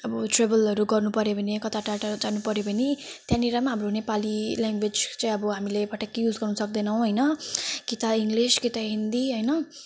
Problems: background sounds at intervals